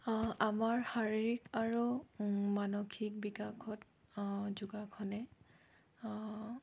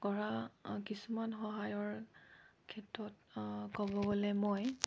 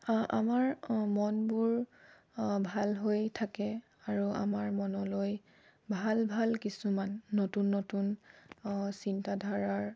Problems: low volume